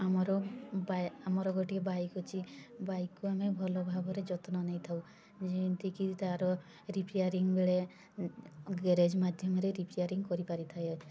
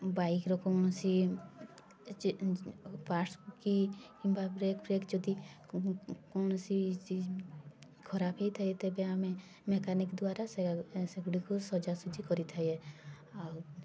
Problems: constant background noise, continuous background conversations